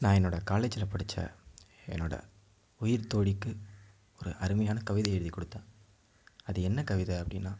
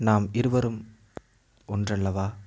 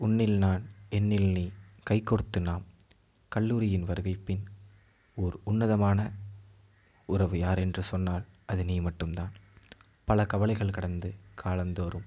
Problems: low volume